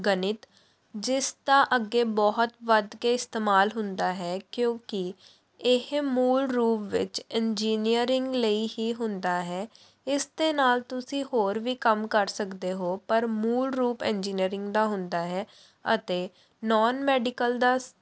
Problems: background sounds at intervals